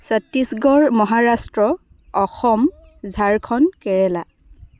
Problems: constant background noise